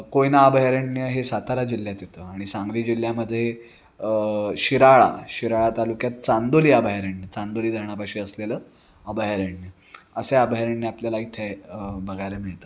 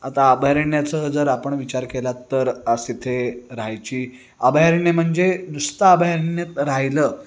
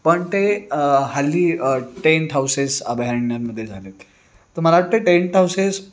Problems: background sounds at intervals